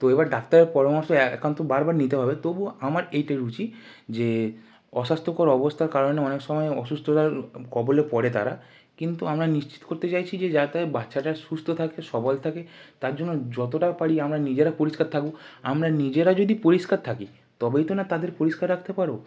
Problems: background sounds at intervals